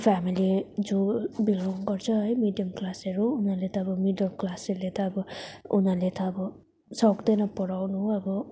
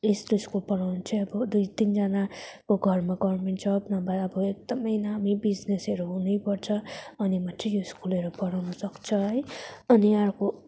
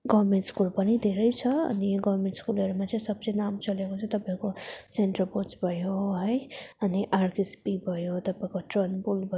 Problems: none marked